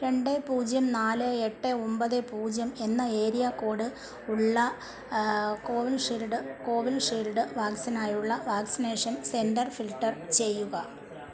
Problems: background conversations at intervals